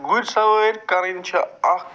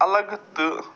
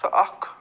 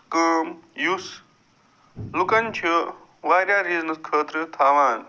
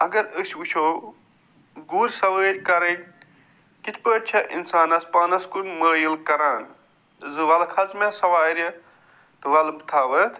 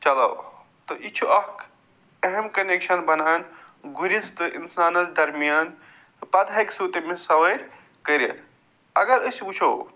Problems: none marked